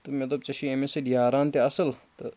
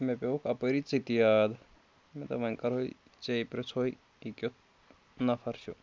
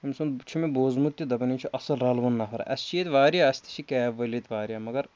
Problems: none marked